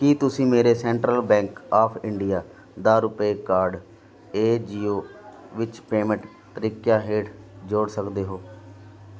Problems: continuous background conversations